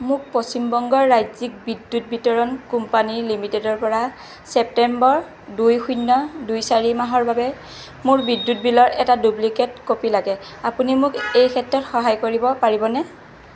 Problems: constant background noise